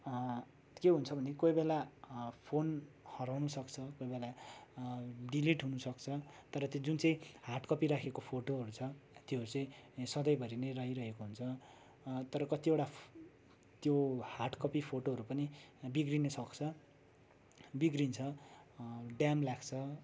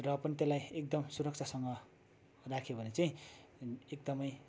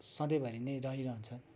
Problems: constant background noise, background conversations at intervals